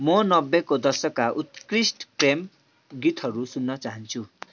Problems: constant background noise